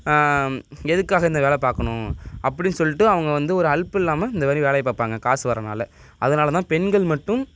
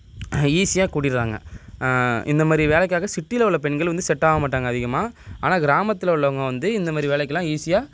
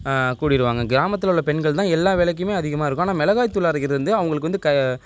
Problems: background sounds at intervals